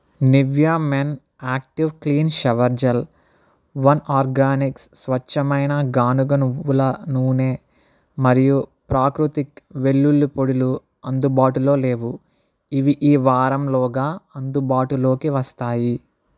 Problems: none marked